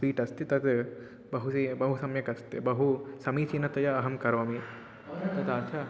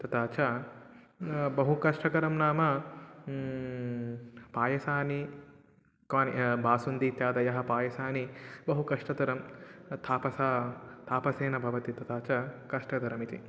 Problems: background conversations at intervals